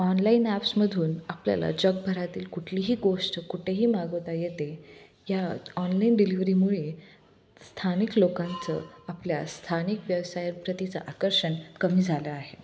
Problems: none marked